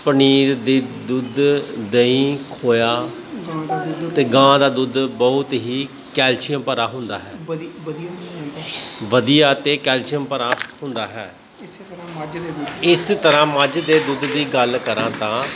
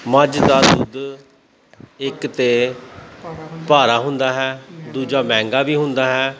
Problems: constant background noise, continuous background conversations